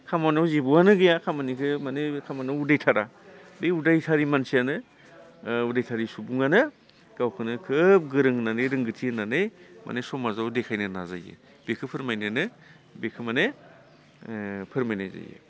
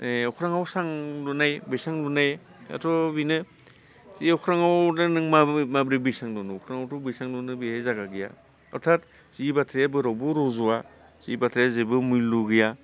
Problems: constant background noise